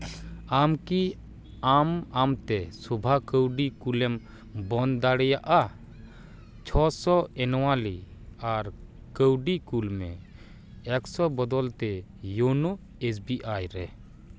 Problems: none marked